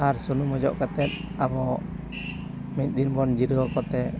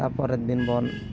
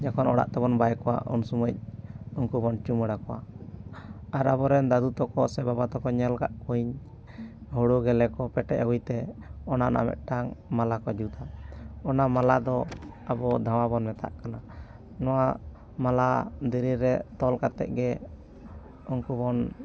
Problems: constant background noise